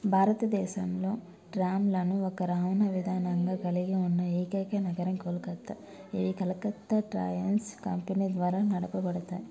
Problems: low volume